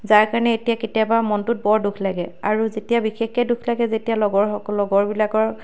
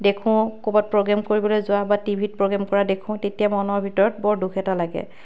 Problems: background sounds at intervals